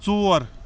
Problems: constant background noise